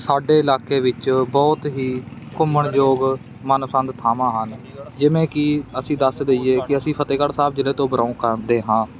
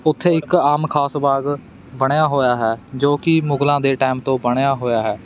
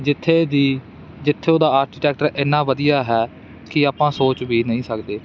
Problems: constant background noise